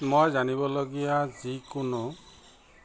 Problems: background conversations at intervals